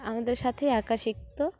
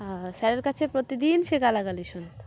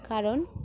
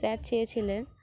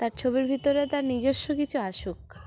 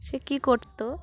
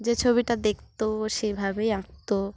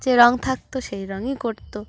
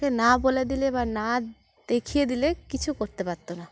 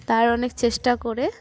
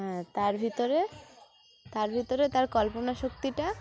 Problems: constant background noise, background conversations at intervals